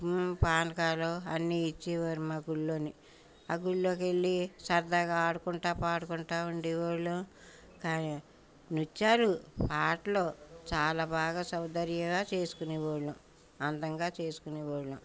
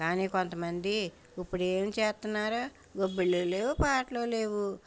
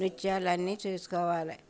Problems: background sounds at intervals, background conversations at intervals